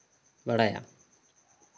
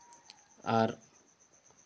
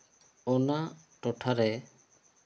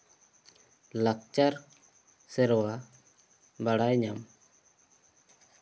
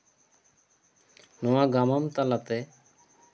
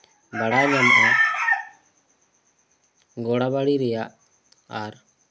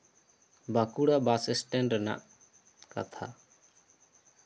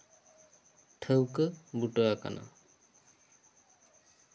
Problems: background sounds at intervals